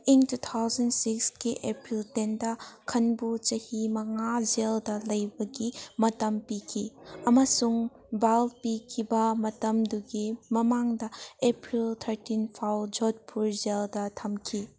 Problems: background sounds at intervals